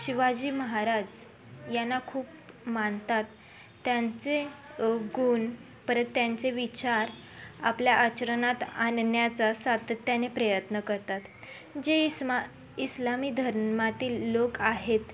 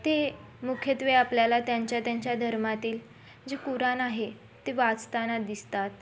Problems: constant background noise, continuous background conversations